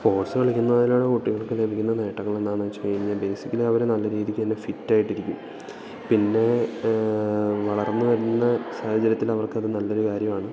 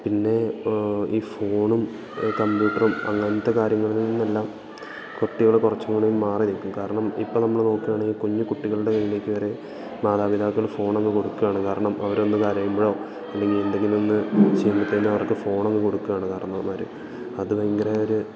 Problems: background sounds at intervals, background conversations at intervals